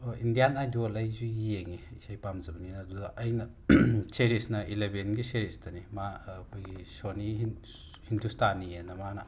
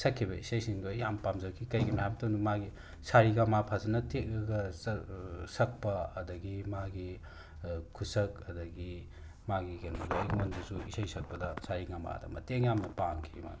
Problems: constant background noise